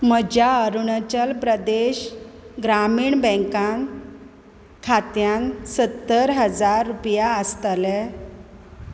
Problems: none marked